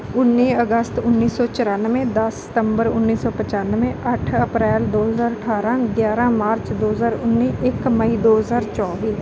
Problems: none marked